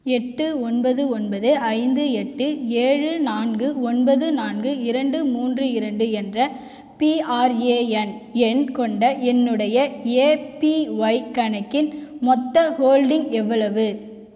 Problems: echo